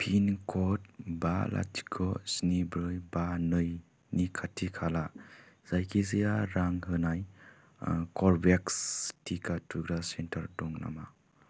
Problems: constant background noise